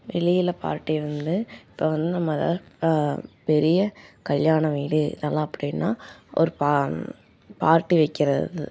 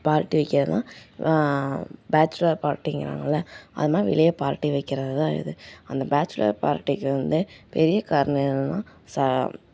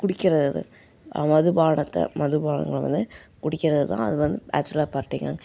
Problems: none marked